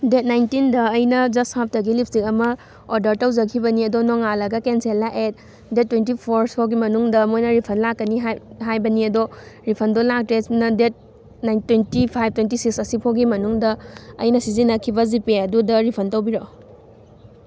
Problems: constant background noise